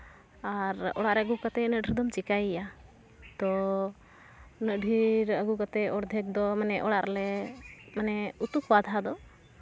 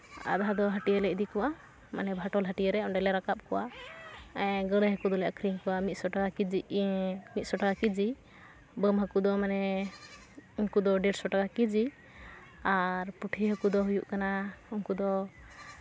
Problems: none marked